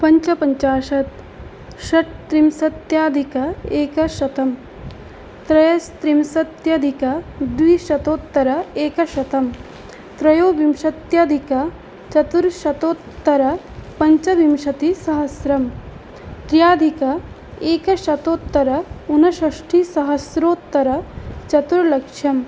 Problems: constant background noise